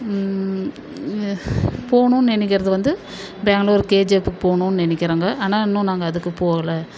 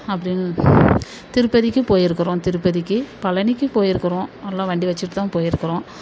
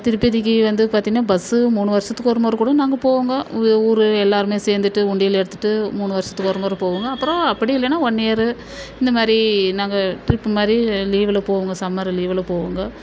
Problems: constant background noise